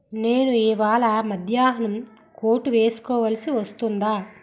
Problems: background sounds at intervals